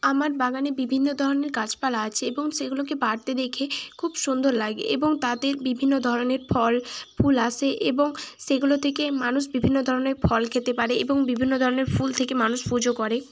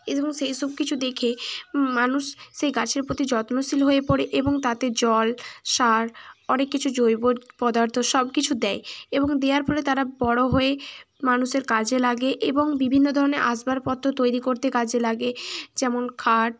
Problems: constant background noise